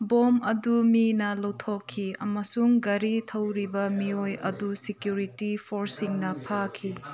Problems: background conversations at intervals